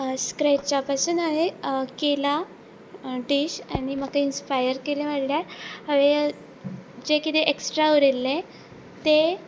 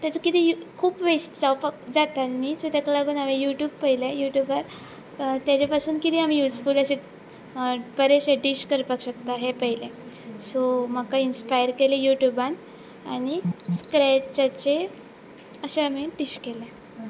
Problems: background sounds at intervals